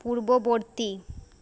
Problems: none marked